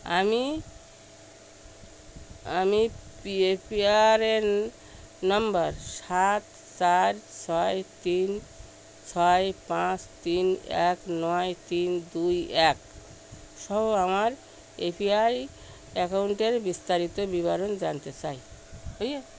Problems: background sounds at intervals